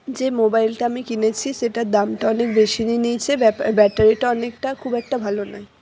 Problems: none marked